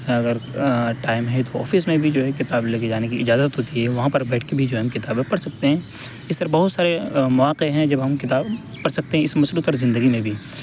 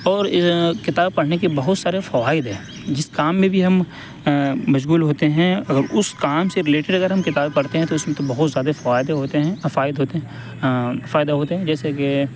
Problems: constant background noise